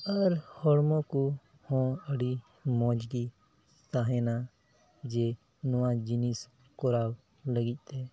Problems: none marked